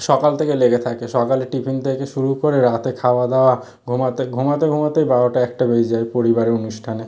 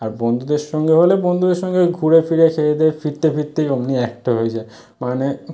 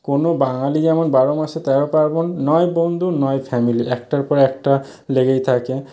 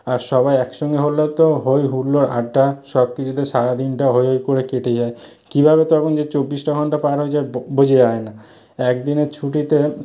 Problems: none marked